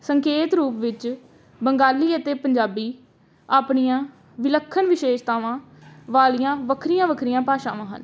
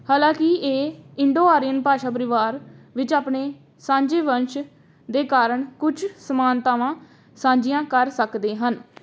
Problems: background sounds at intervals